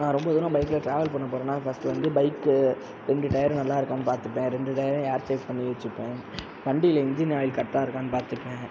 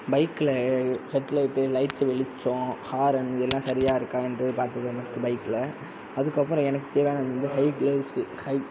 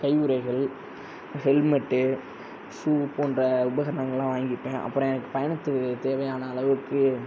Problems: constant background noise